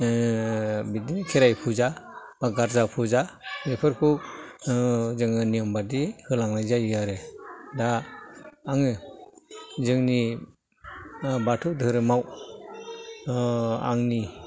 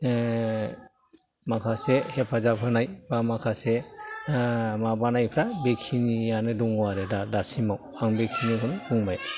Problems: low volume